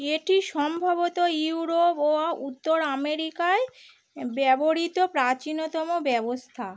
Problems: none marked